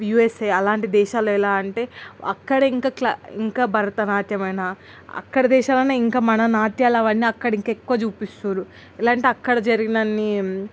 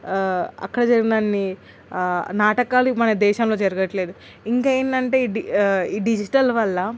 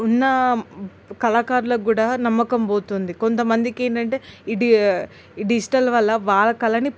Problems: constant background noise